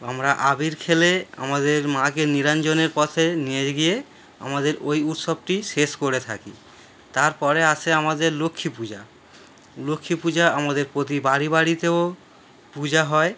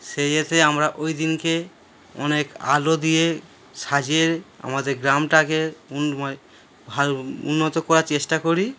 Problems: none marked